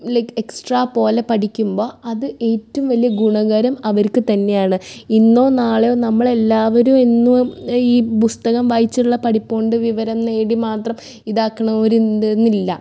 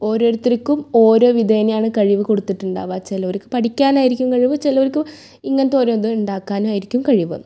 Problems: none marked